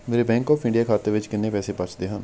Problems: background sounds at intervals